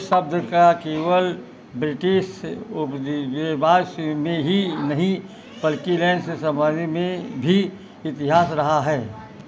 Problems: constant background noise